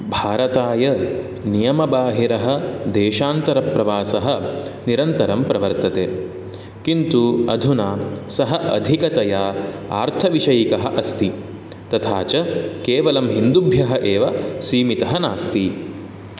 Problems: none marked